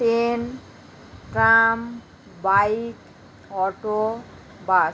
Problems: none marked